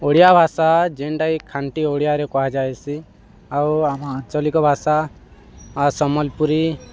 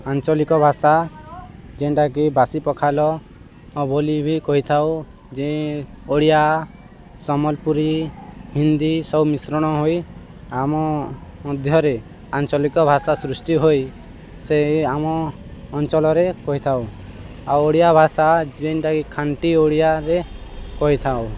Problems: constant background noise